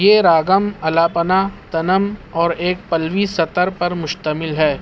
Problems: constant background noise